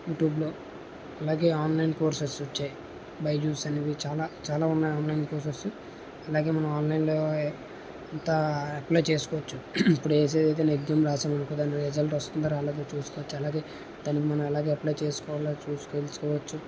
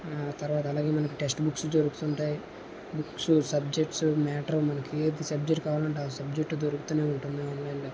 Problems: none marked